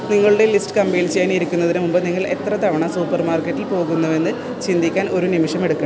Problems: constant background noise